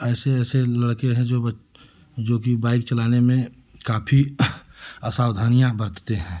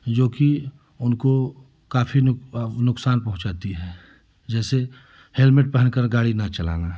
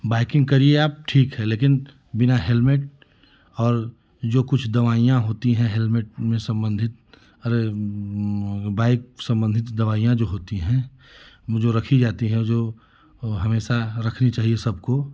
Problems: none marked